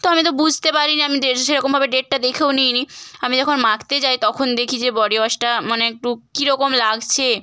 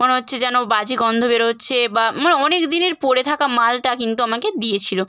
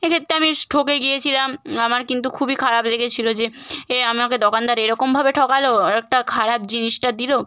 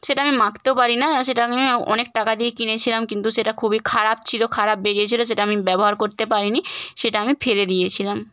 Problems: constant background noise